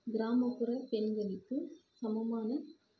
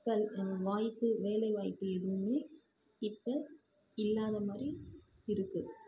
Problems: constant background noise, low volume